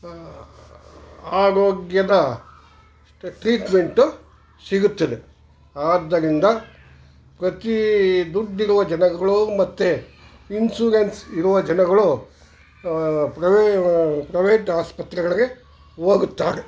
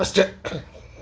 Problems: background sounds at intervals